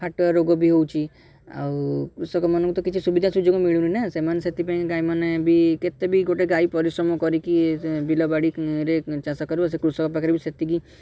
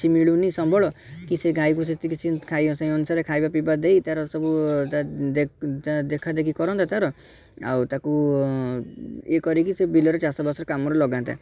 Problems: background sounds at intervals, background conversations at intervals